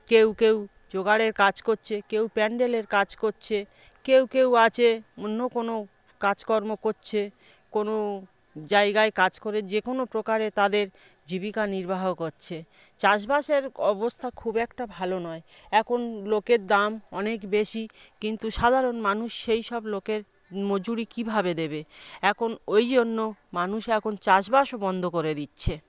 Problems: background conversations at intervals